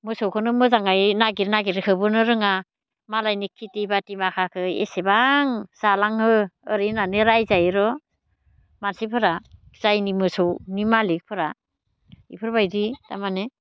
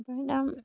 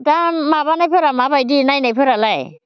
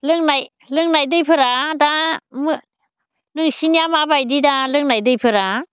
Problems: low volume